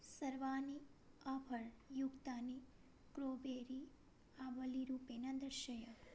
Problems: low volume